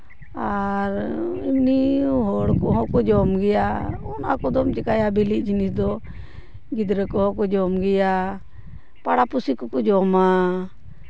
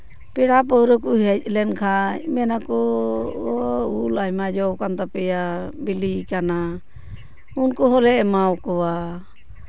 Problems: none marked